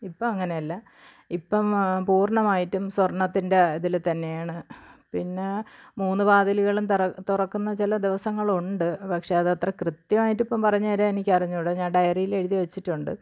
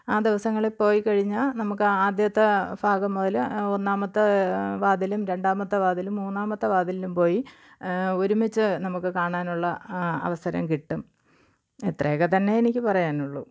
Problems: low volume